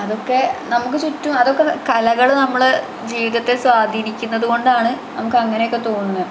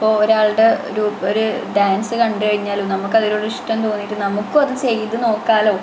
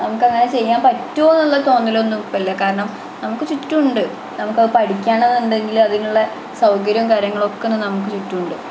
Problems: constant background noise